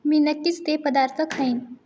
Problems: background sounds at intervals